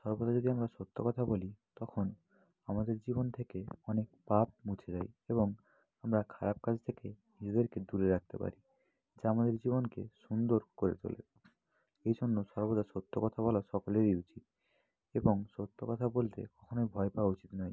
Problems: constant background noise